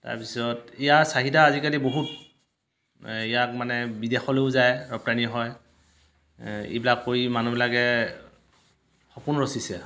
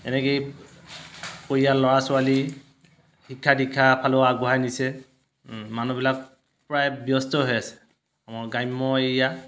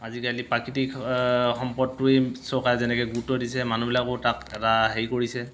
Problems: constant background noise